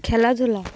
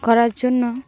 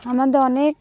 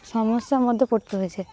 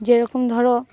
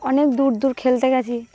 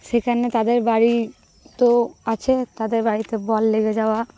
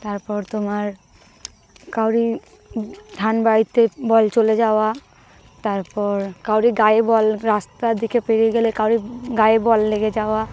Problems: constant background noise, continuous background conversations